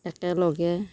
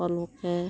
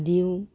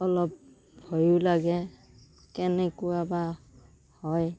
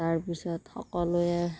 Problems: background sounds at intervals